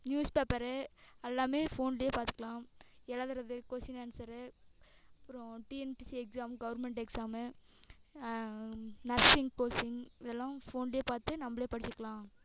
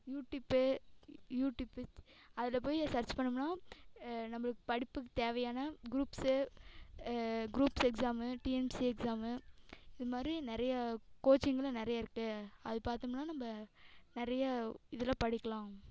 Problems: background sounds at intervals, echo